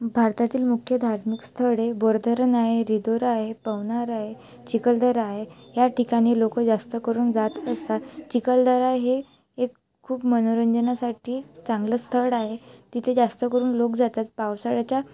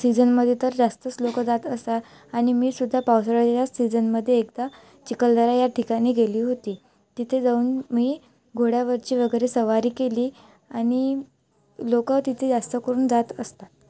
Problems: none marked